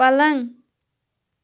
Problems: background sounds at intervals